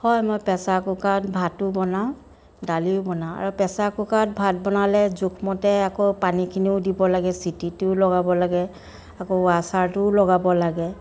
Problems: continuous background conversations